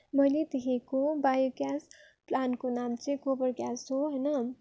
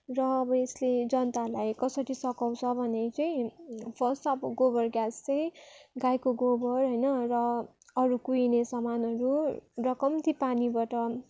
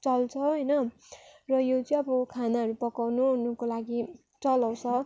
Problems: background sounds at intervals